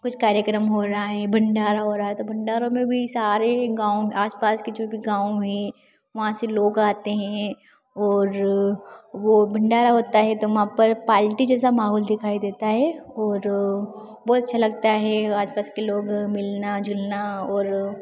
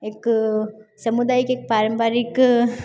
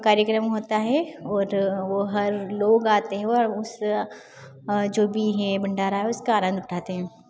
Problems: background sounds at intervals